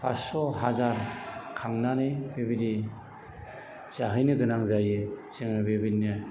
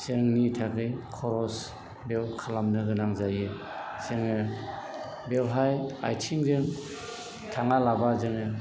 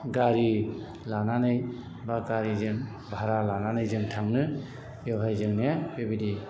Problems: background sounds at intervals, background conversations at intervals